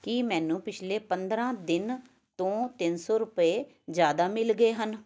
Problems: background sounds at intervals, background conversations at intervals